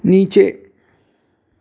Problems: constant background noise, echo